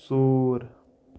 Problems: background sounds at intervals